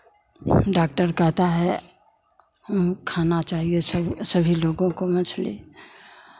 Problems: constant background noise, background conversations at intervals